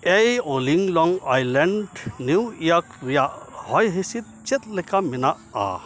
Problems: constant background noise